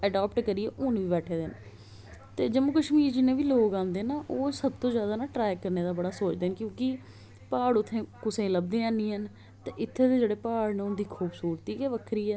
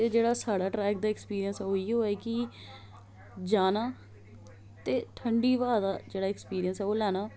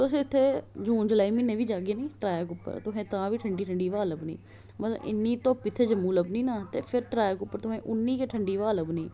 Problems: none marked